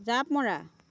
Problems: none marked